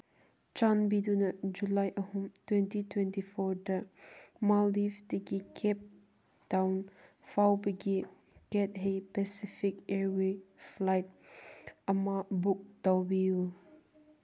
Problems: none marked